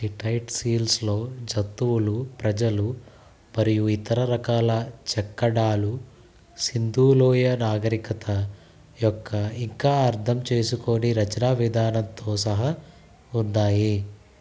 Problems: constant background noise